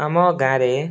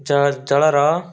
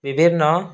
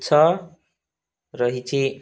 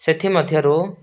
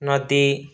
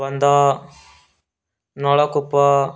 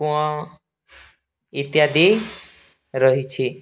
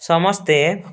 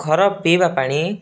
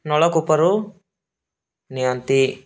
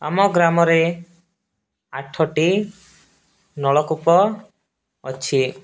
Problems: background sounds at intervals, background conversations at intervals